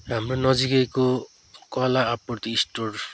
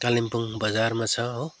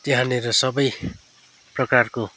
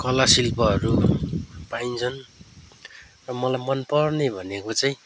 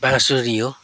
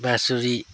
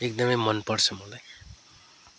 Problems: none marked